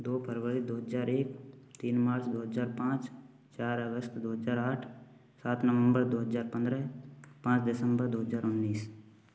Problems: none marked